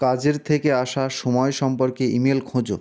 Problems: constant background noise